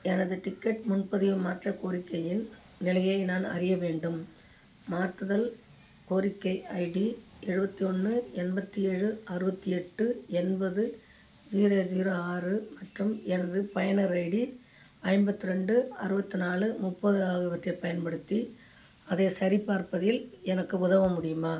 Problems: none marked